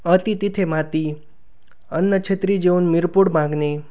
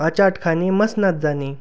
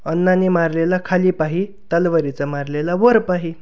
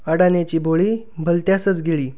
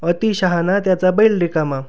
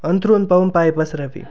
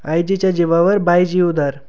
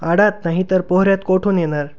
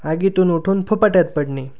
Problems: background sounds at intervals